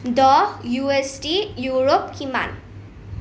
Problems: none marked